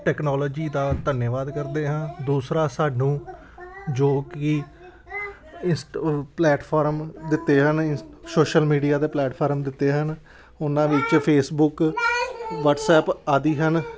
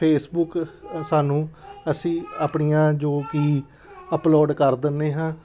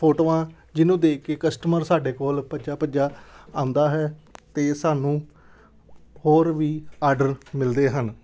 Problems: background sounds at intervals, background conversations at intervals